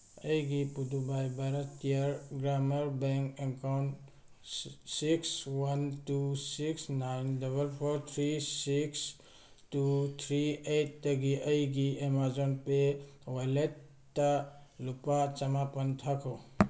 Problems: none marked